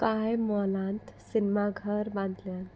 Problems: constant background noise